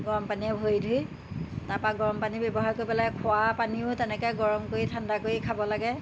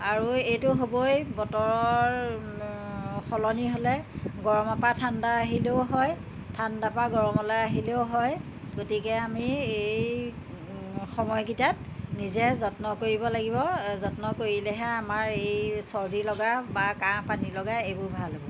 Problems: constant background noise